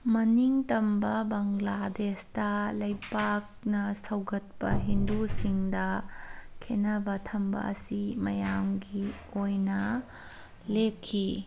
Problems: background sounds at intervals